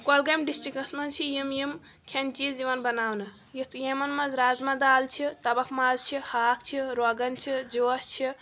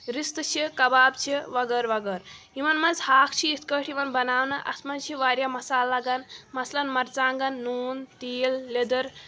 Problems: constant background noise